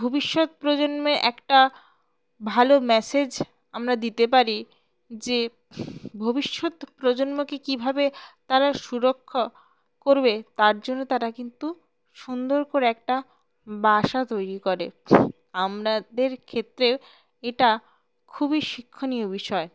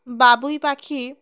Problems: background sounds at intervals